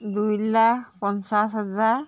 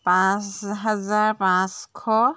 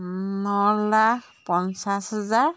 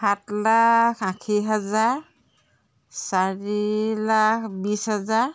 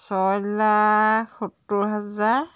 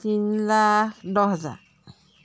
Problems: background sounds at intervals